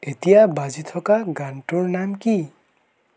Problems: none marked